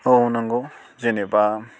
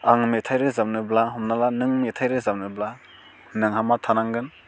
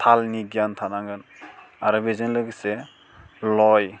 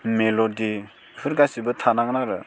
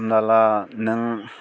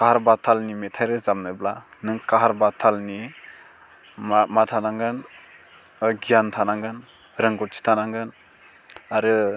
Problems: none marked